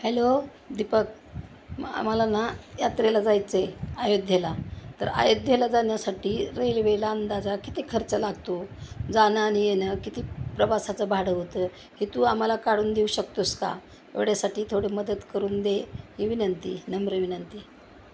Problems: none marked